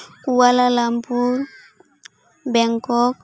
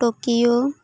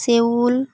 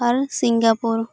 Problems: background sounds at intervals